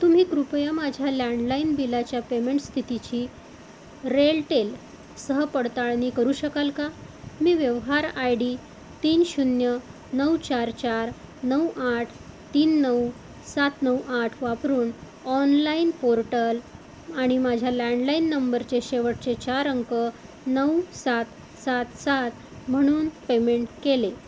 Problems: constant background noise